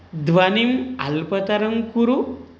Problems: none marked